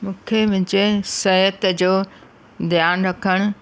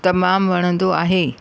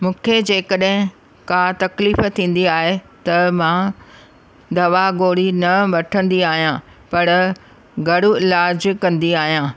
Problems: constant background noise